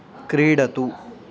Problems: constant background noise, background conversations at intervals